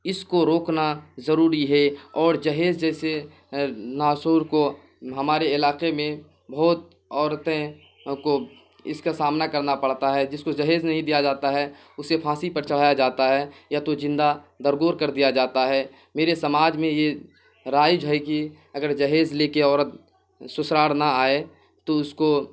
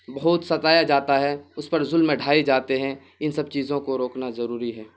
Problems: constant background noise